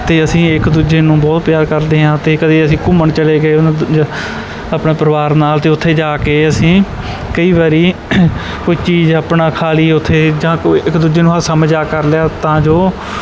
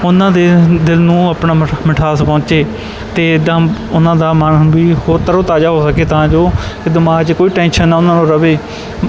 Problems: background sounds at intervals